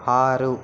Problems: constant background noise